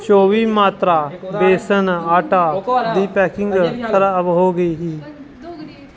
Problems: constant background noise, continuous background conversations